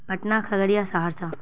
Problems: none marked